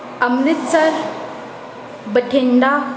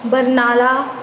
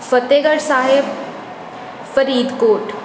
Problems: none marked